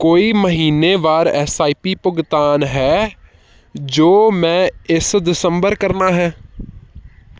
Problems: background sounds at intervals